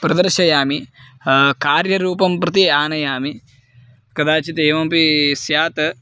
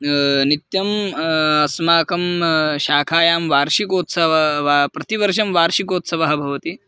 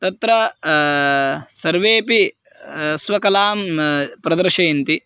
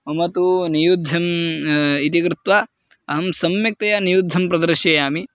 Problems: background sounds at intervals